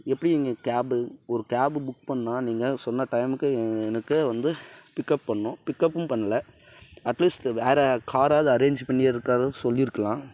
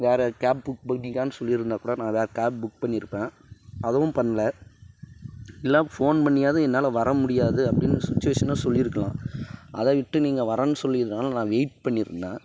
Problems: background sounds at intervals